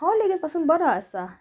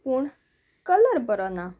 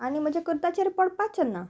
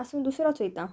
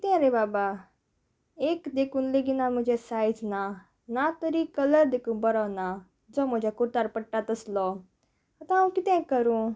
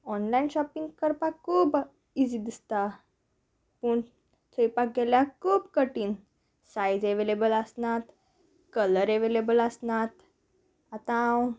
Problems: background sounds at intervals